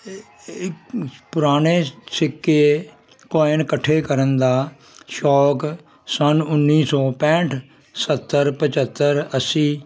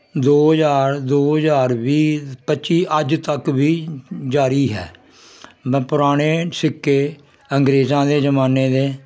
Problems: constant background noise